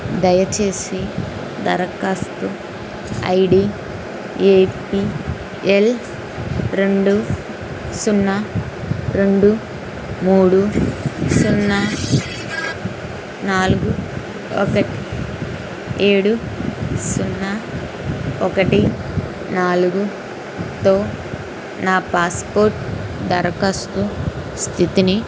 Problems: constant background noise